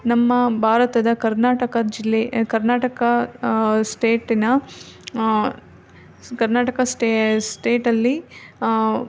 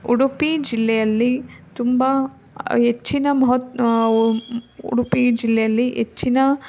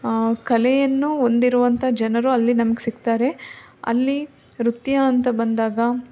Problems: background sounds at intervals